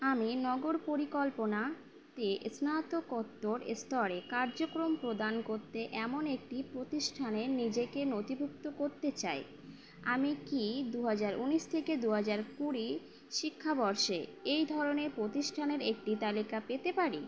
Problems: constant background noise